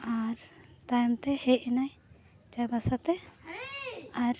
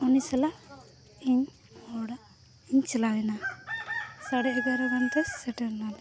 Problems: background sounds at intervals, background conversations at intervals